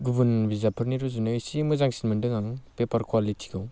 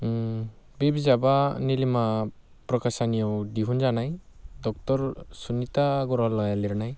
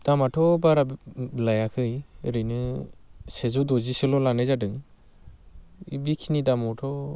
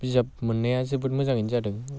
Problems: constant background noise